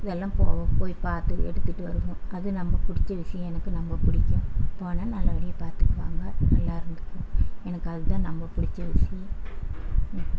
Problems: constant background noise